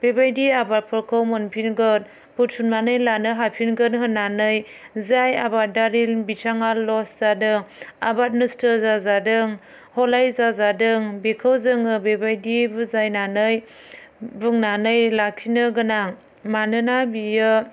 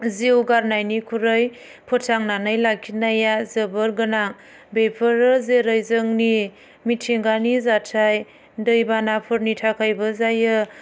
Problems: none marked